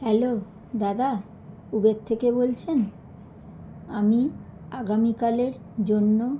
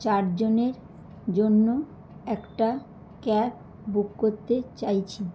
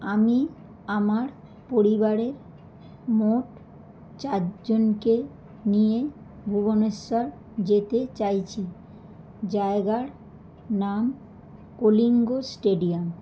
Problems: background sounds at intervals